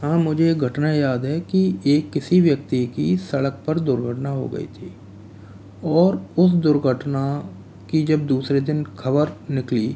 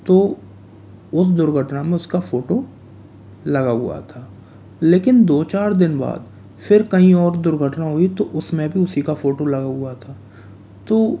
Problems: constant background noise